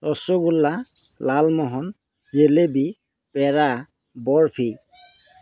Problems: background sounds at intervals